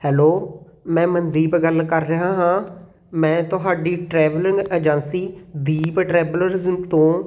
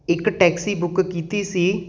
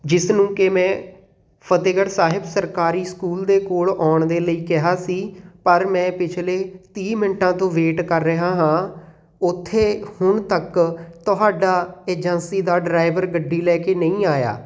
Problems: background sounds at intervals